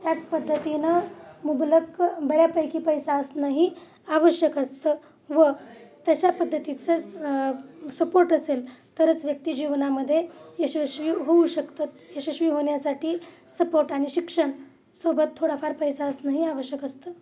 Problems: none marked